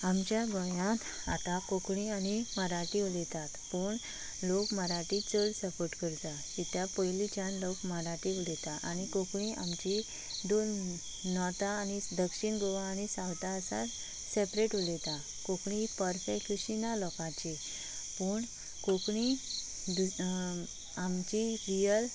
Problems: constant background noise